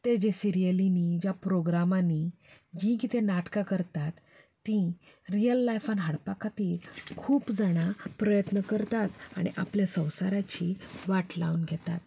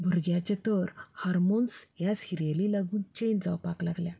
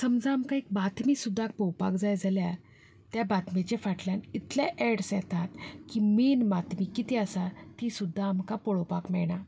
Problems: continuous background conversations